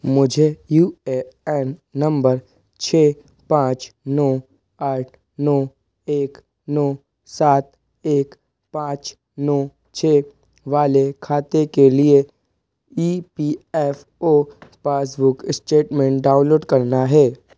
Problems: none marked